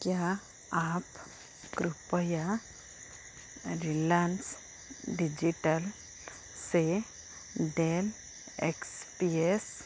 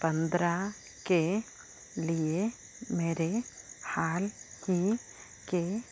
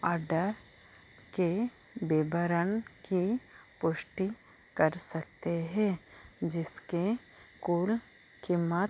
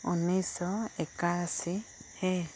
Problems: low volume